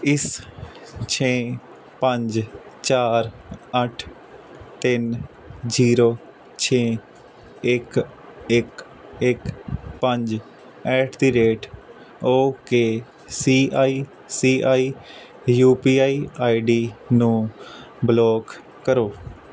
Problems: none marked